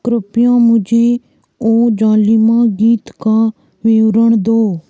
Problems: constant background noise